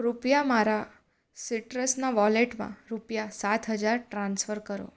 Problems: none marked